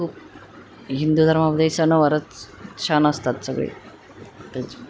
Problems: constant background noise